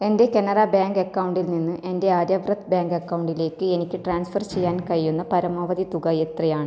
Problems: low volume